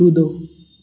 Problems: background sounds at intervals